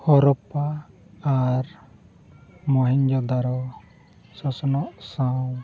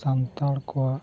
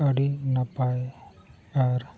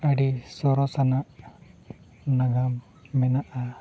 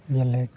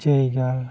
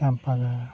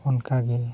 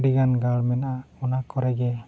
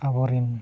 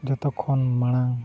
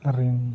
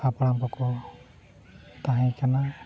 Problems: constant background noise